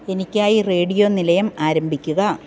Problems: none marked